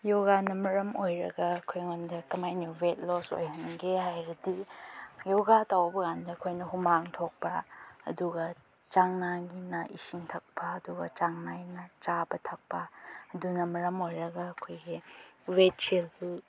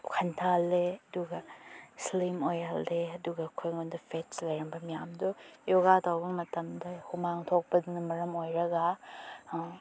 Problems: none marked